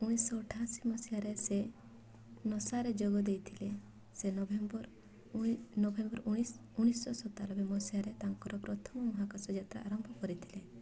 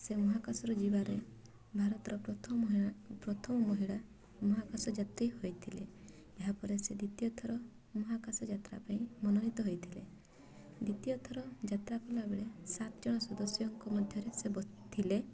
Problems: constant background noise, continuous background conversations